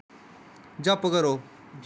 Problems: none marked